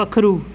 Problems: constant background noise